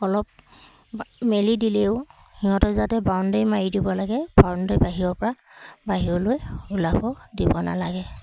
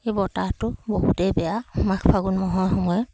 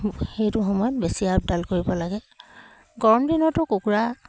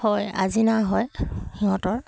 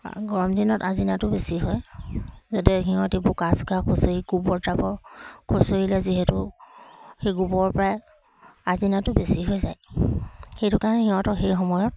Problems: none marked